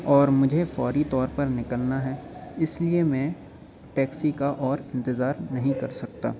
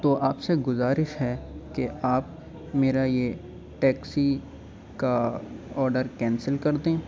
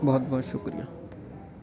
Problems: constant background noise, low volume